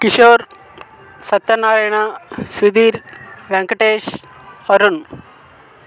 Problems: constant background noise